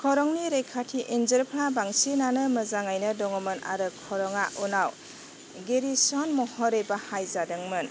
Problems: constant background noise